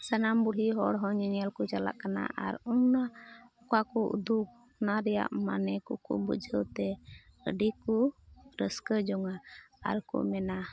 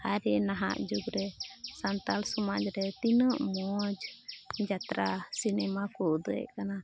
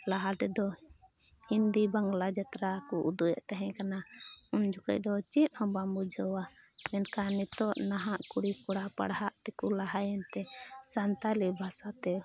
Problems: constant background noise, low volume